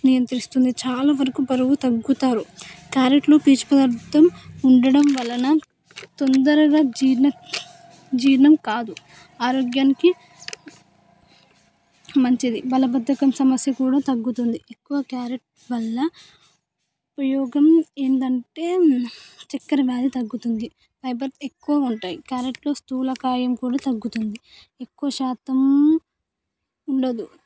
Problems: background sounds at intervals, background conversations at intervals